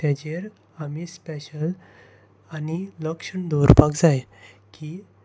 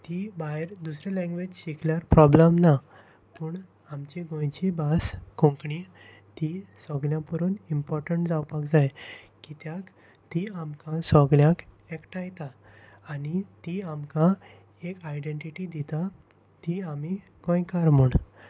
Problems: constant background noise